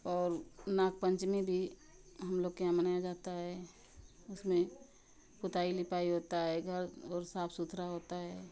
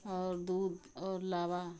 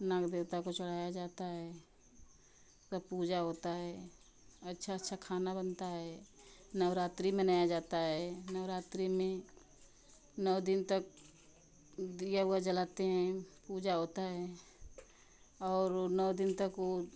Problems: none marked